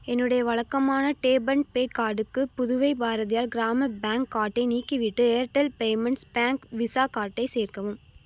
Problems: none marked